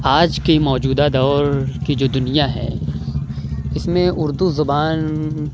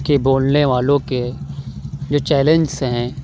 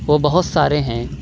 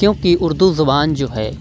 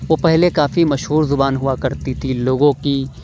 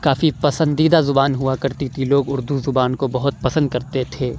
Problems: none marked